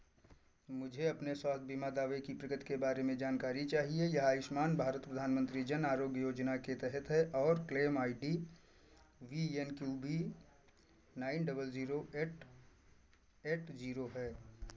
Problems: none marked